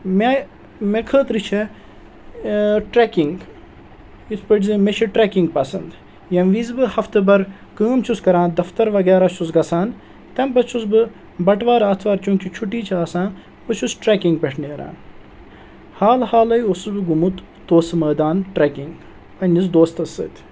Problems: constant background noise